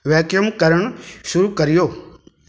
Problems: background sounds at intervals, echo